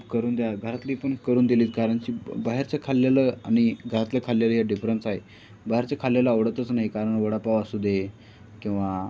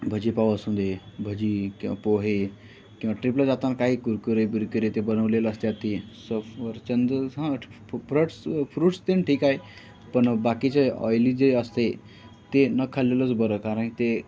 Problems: none marked